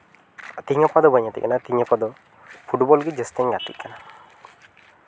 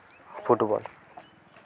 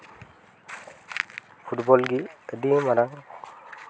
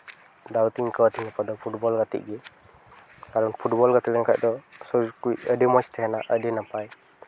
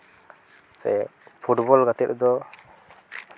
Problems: background sounds at intervals